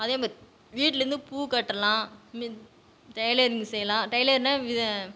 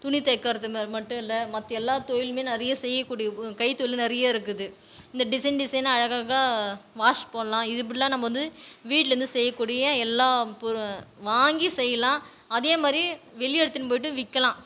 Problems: background sounds at intervals, background conversations at intervals